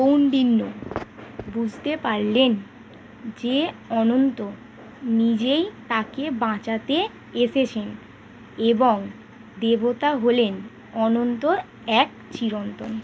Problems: background sounds at intervals